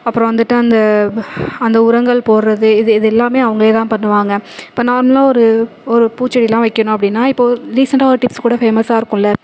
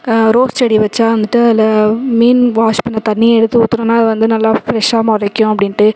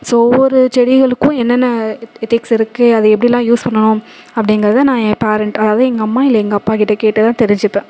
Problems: constant background noise